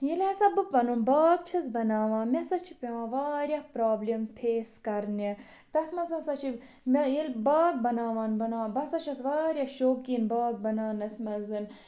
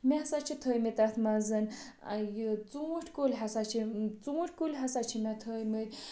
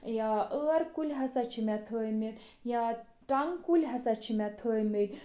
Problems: background sounds at intervals, background conversations at intervals